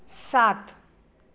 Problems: none marked